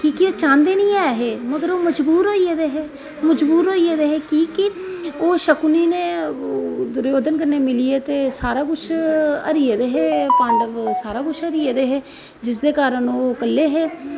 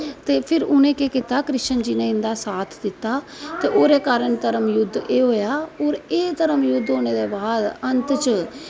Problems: none marked